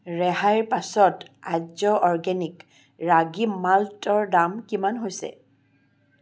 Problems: constant background noise